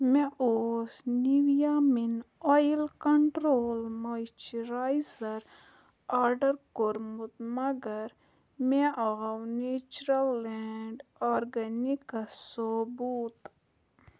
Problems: low volume